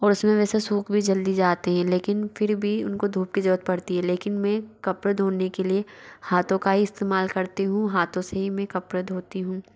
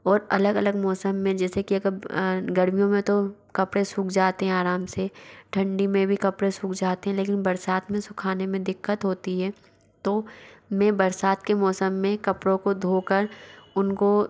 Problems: background sounds at intervals